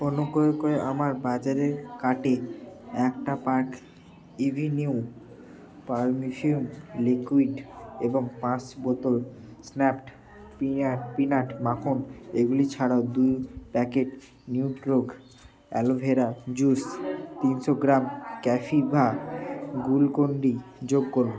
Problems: none marked